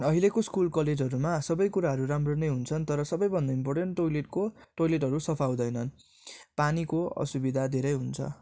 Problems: none marked